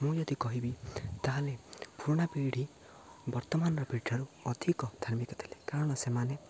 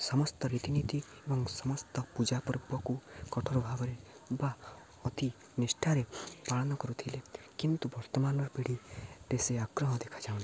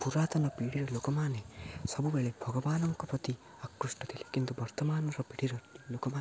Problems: low volume